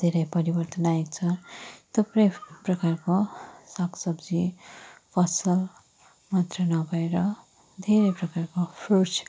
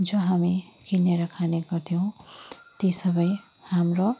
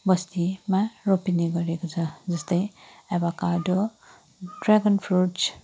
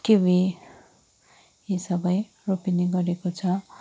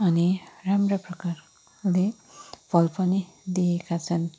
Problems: none marked